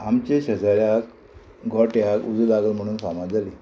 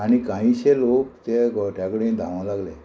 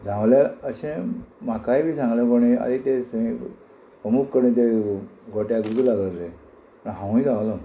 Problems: constant background noise